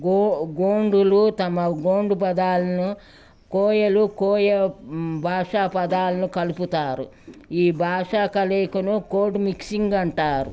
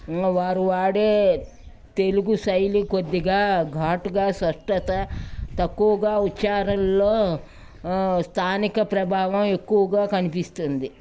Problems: background sounds at intervals, background conversations at intervals